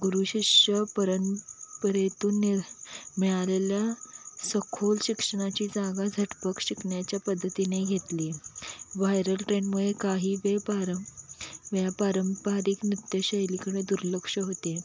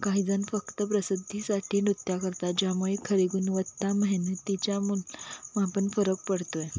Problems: none marked